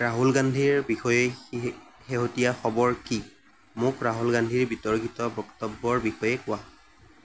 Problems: constant background noise